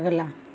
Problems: constant background noise